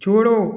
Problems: none marked